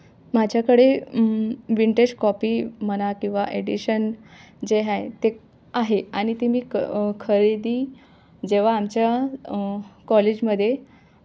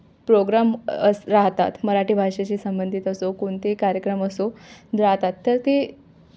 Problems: none marked